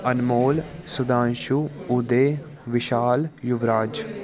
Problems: continuous background conversations